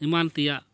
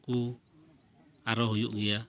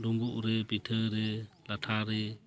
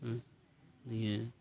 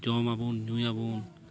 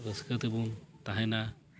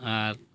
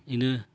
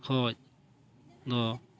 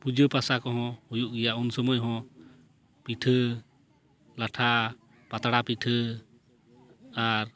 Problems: background sounds at intervals